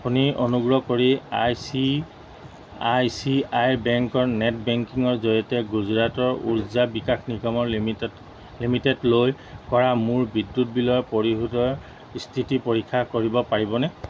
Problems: none marked